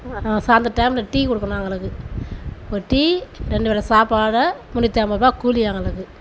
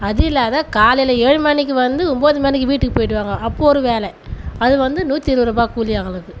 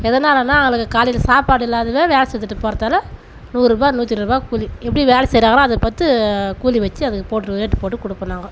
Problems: constant background noise